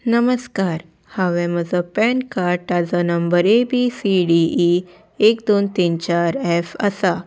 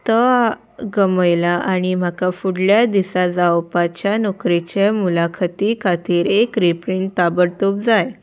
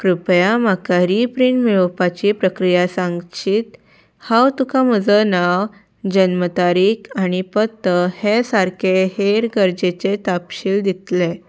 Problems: background sounds at intervals